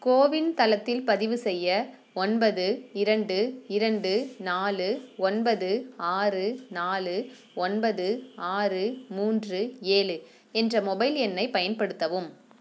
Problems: none marked